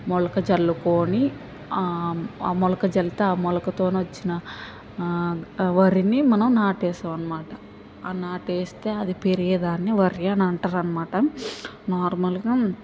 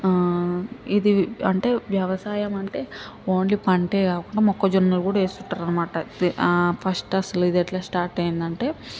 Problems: none marked